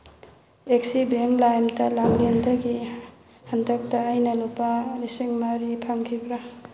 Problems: background sounds at intervals